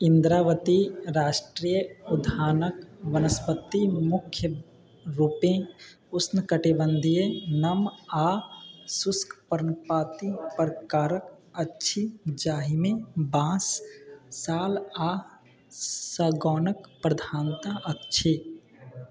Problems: background sounds at intervals